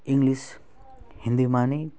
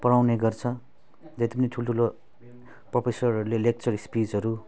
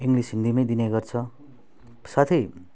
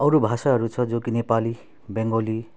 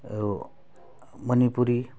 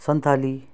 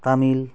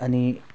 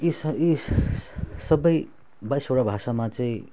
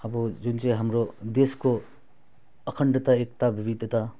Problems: none marked